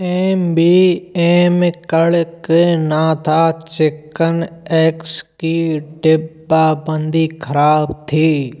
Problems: constant background noise